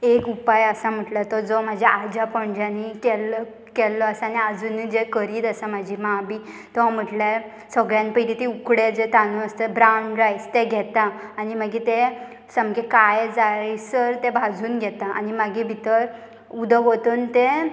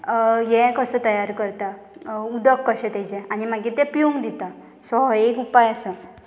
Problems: none marked